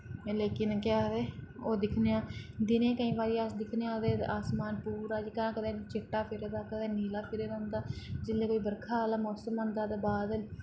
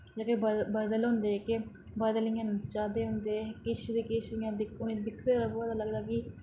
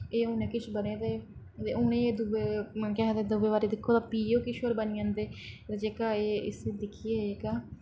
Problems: low volume